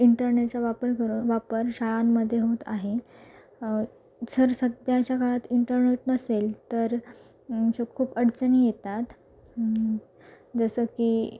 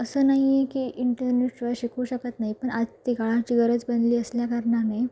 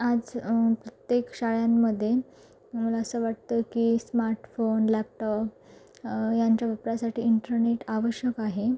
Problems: background sounds at intervals